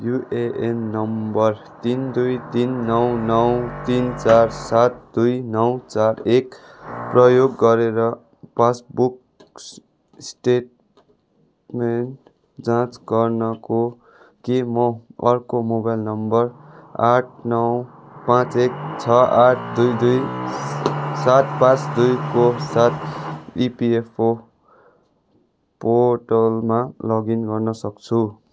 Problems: background sounds at intervals